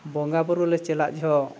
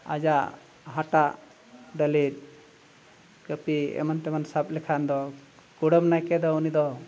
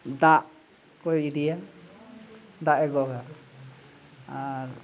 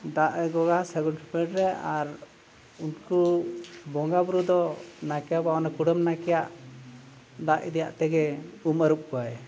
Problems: background sounds at intervals